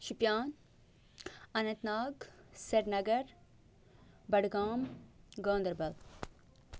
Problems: none marked